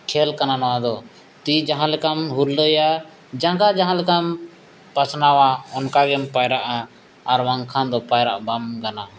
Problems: none marked